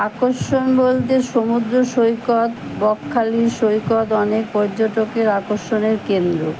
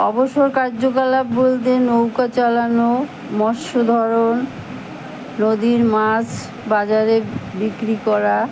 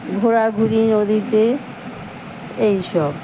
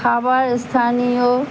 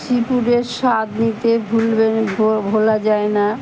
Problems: constant background noise, background conversations at intervals